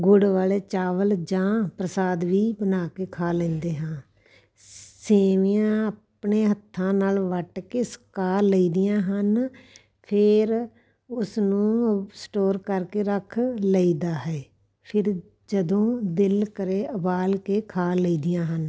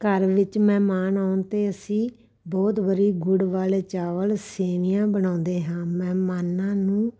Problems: background sounds at intervals